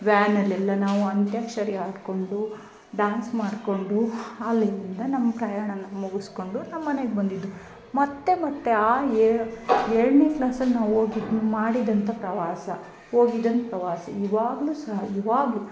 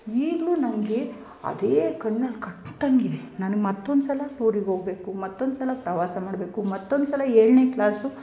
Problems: none marked